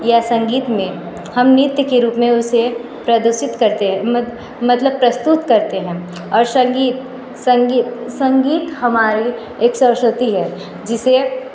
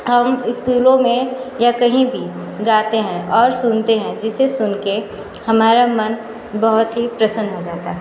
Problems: constant background noise